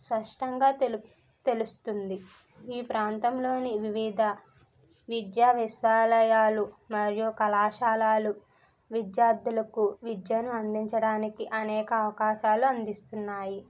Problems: none marked